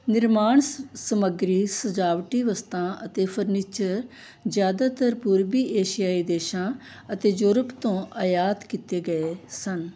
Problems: background sounds at intervals